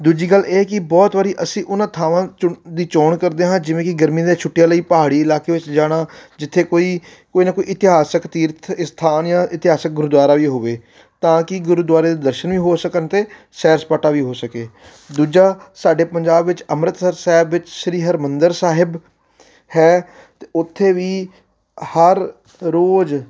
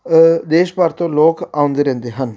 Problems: background sounds at intervals